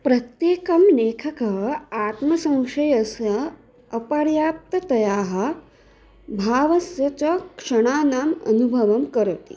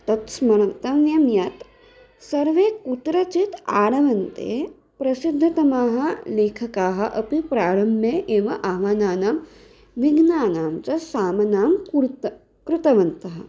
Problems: none marked